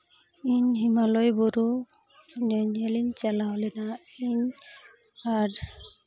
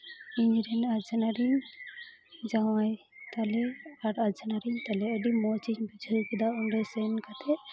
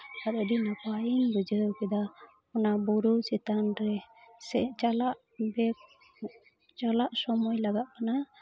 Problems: constant background noise